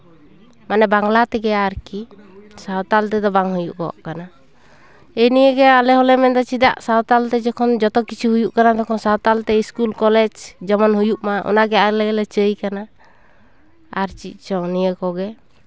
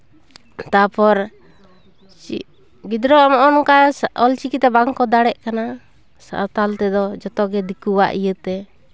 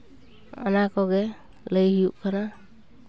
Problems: constant background noise